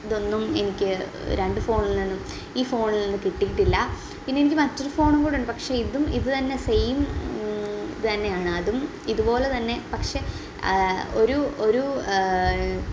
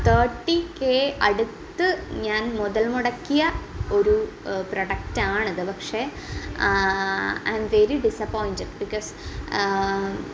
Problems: constant background noise